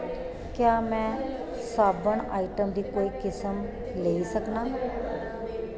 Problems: constant background noise, echo